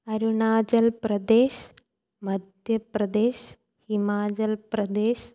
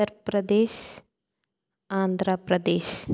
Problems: none marked